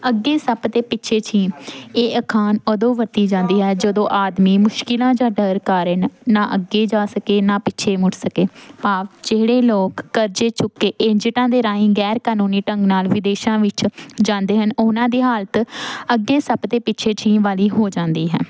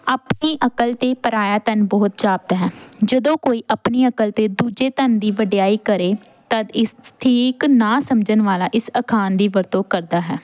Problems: constant background noise